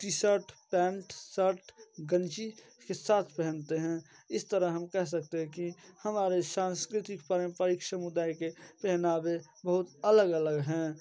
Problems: constant background noise, low volume